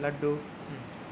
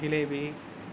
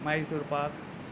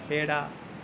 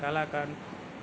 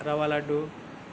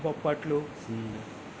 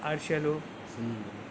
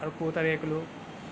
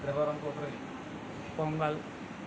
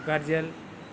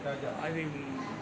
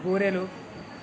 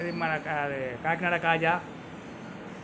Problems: constant background noise, background conversations at intervals